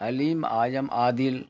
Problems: constant background noise